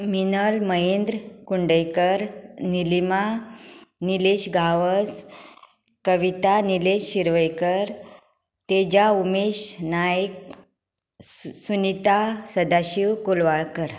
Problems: background sounds at intervals